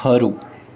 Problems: constant background noise